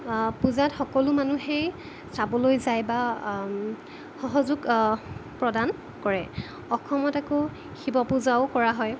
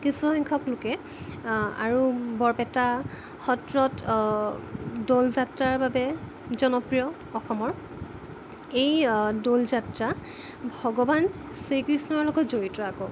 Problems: constant background noise